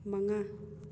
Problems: low volume